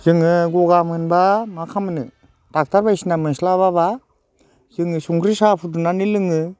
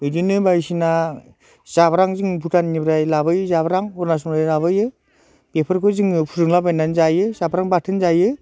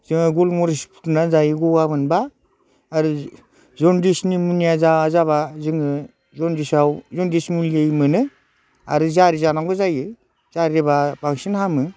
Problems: constant background noise